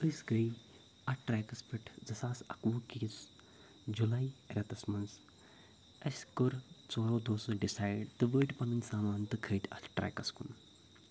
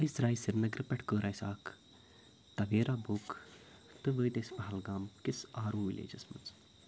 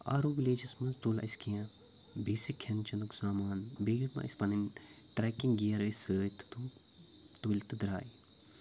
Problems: none marked